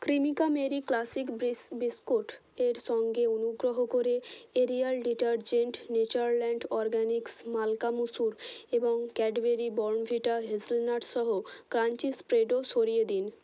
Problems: constant background noise